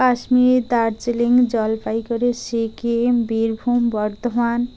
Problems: constant background noise